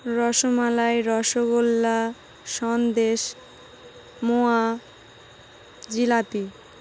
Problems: constant background noise